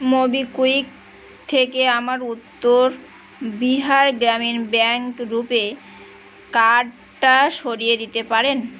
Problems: none marked